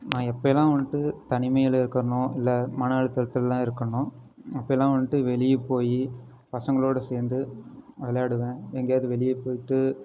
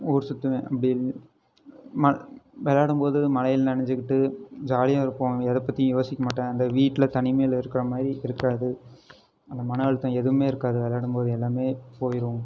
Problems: none marked